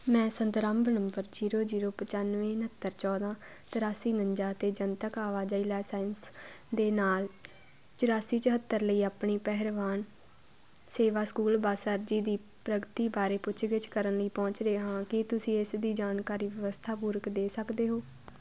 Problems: constant background noise